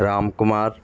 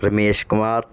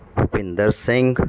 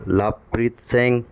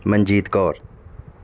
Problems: constant background noise